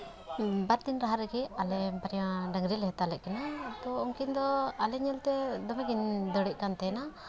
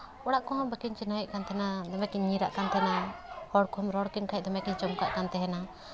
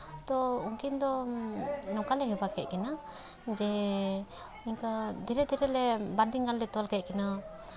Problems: background sounds at intervals